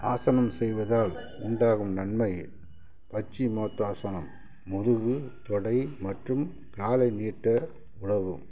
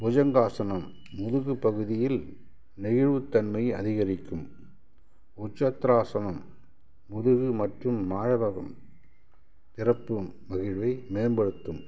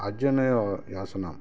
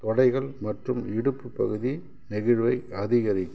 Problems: background sounds at intervals